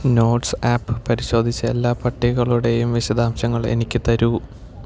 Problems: none marked